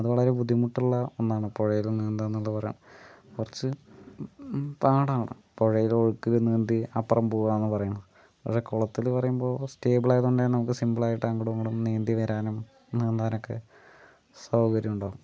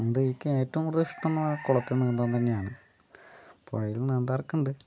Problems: low volume